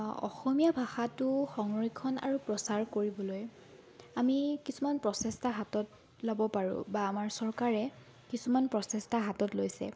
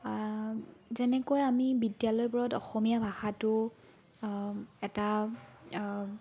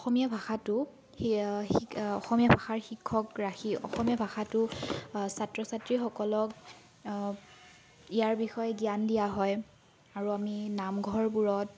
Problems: background sounds at intervals, background conversations at intervals